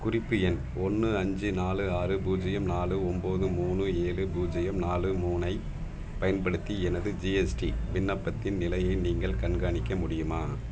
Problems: none marked